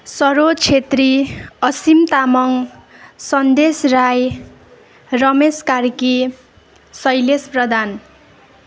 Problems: none marked